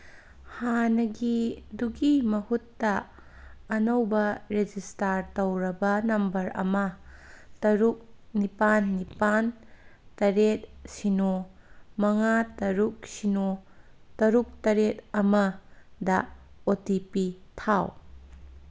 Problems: none marked